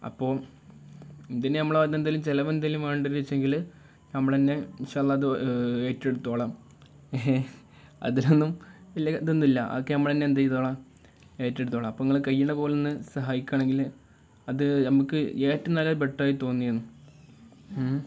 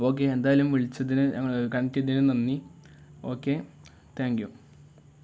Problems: none marked